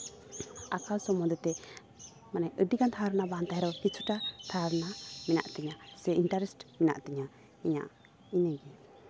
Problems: constant background noise, background conversations at intervals